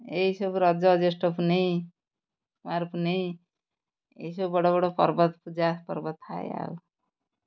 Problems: background sounds at intervals